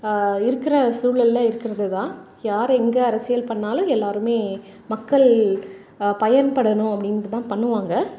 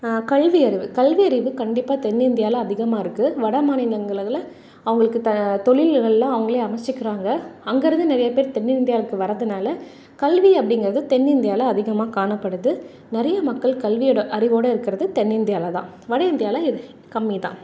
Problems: none marked